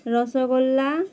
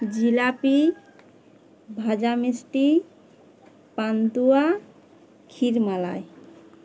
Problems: background sounds at intervals